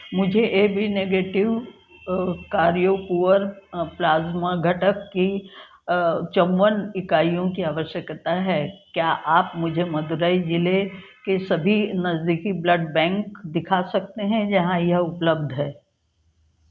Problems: constant background noise